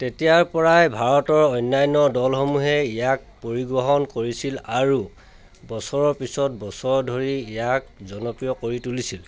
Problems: constant background noise, background conversations at intervals